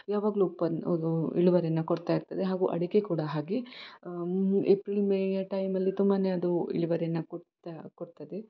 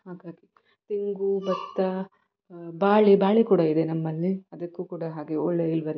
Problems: background sounds at intervals